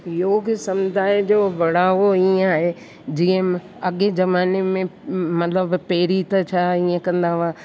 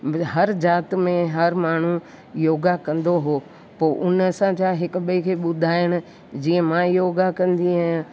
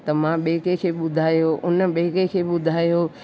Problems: constant background noise